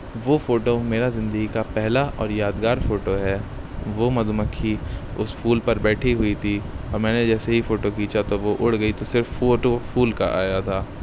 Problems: none marked